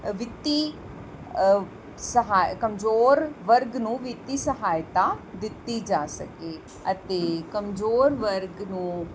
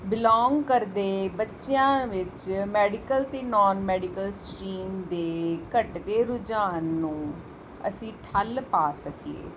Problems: none marked